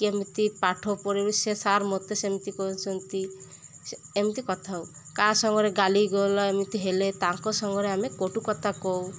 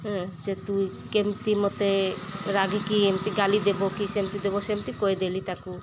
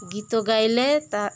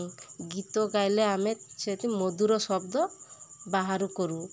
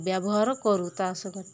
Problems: constant background noise